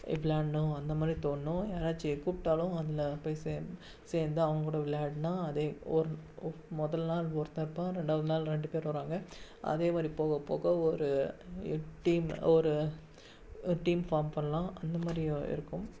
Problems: background sounds at intervals, low volume